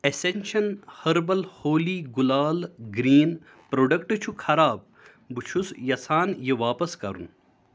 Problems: none marked